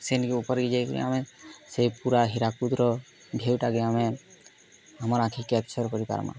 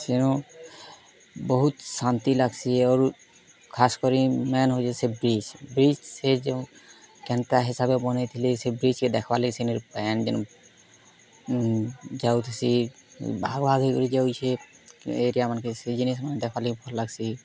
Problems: none marked